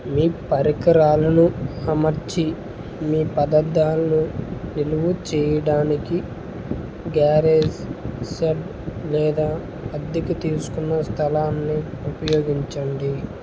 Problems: constant background noise